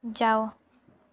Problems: none marked